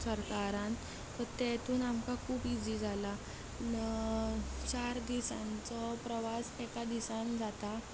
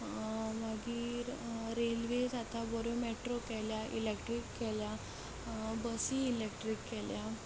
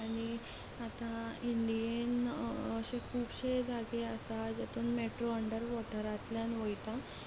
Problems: constant background noise, continuous background conversations